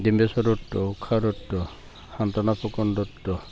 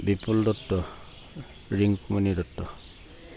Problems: constant background noise